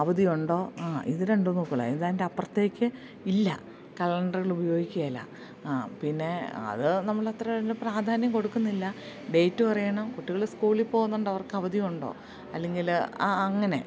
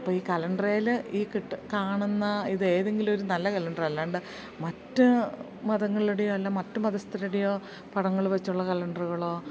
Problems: background sounds at intervals